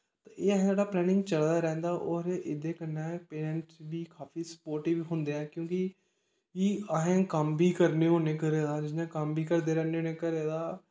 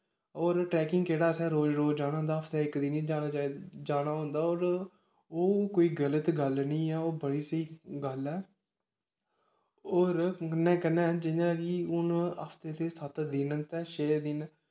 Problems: background sounds at intervals, echo